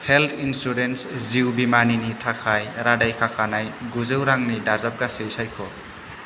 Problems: constant background noise